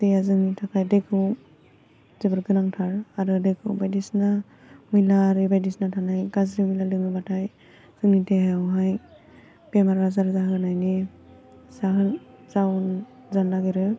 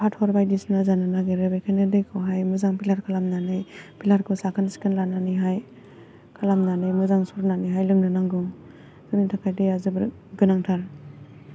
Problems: constant background noise